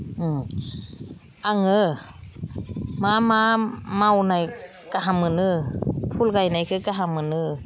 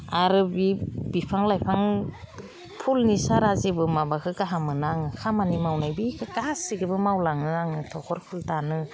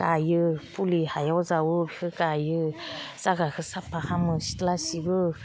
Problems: none marked